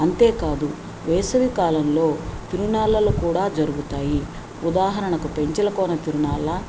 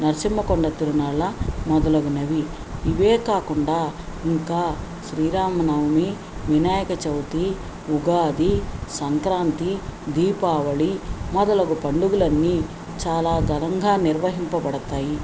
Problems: none marked